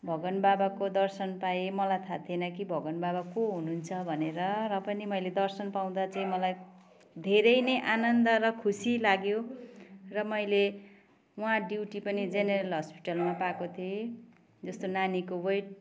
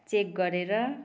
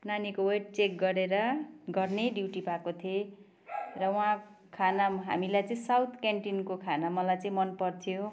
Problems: constant background noise